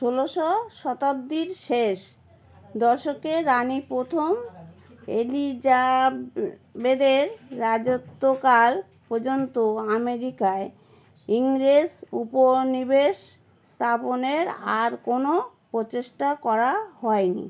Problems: none marked